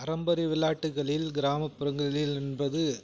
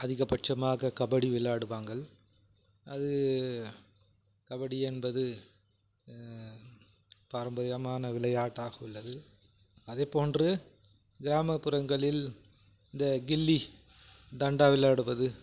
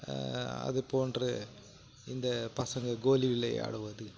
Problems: background sounds at intervals